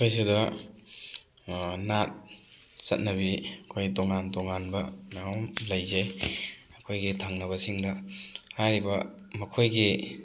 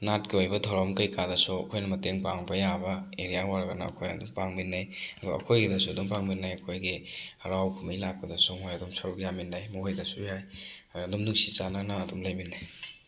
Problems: background sounds at intervals